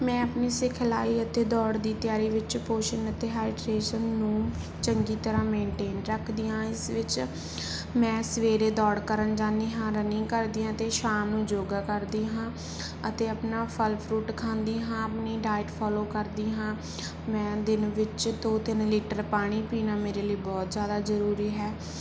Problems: background sounds at intervals